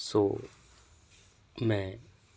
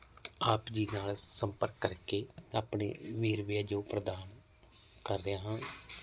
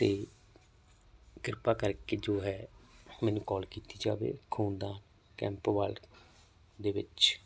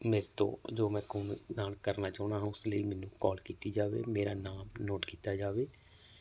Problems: none marked